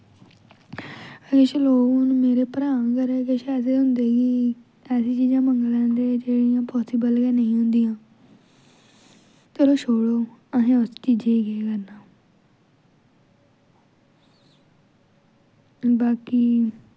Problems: none marked